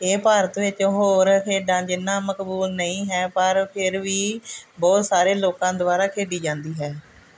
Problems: none marked